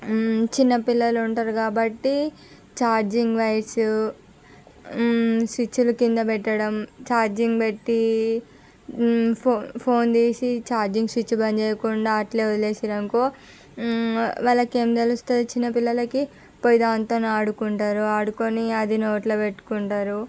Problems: background sounds at intervals